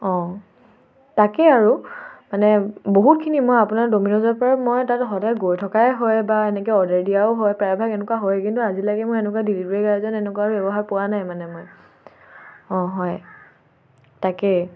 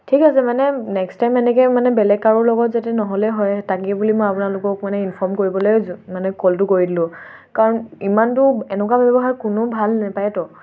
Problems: none marked